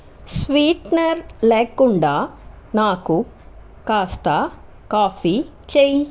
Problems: constant background noise